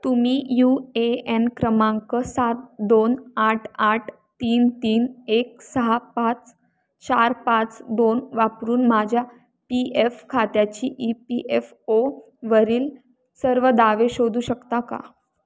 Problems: background sounds at intervals